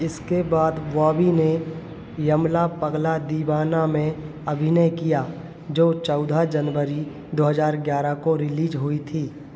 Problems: none marked